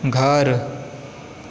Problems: constant background noise